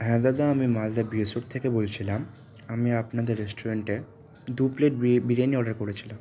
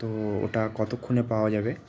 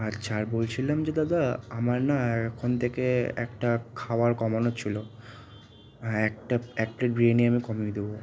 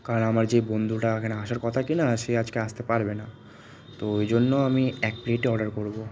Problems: constant background noise, continuous background conversations